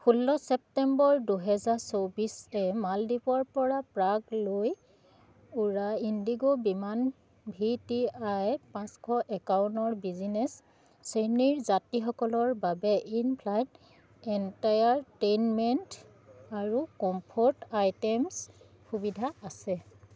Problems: none marked